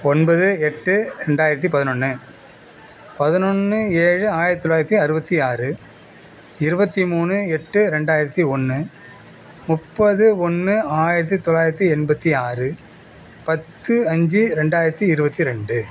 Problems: background sounds at intervals